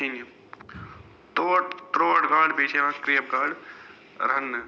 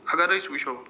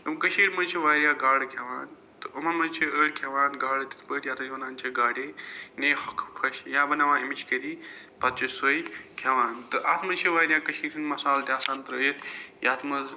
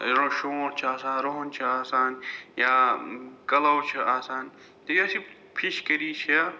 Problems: background sounds at intervals